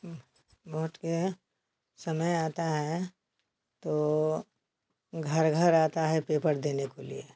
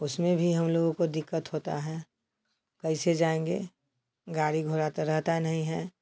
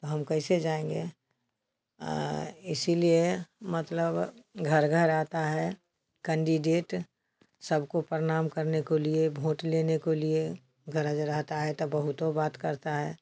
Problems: constant background noise